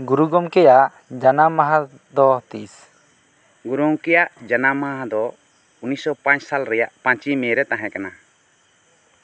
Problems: constant background noise